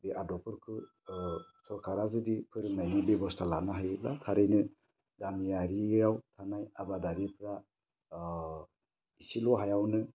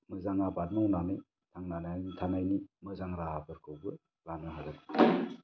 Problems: low volume